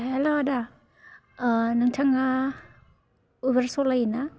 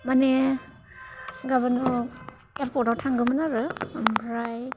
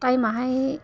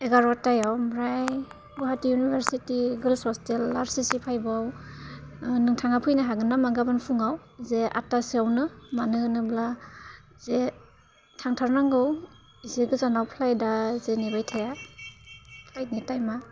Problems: low volume